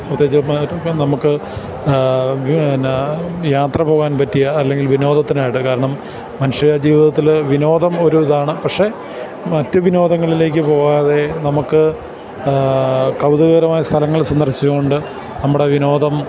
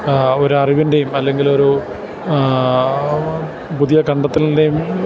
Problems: none marked